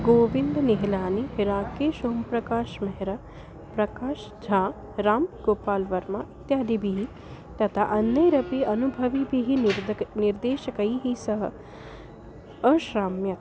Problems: constant background noise, low volume